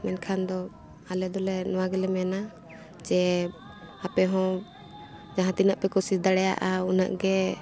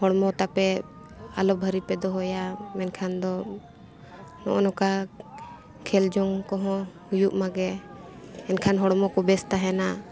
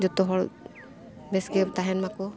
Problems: constant background noise